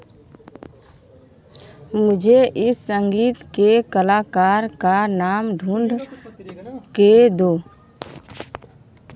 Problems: background sounds at intervals